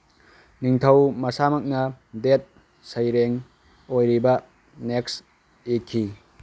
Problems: background sounds at intervals